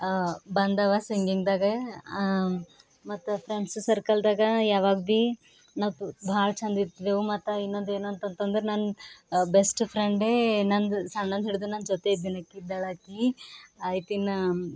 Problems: none marked